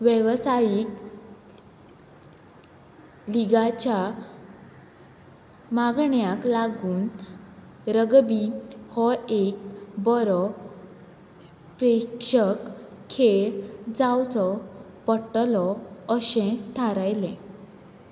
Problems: constant background noise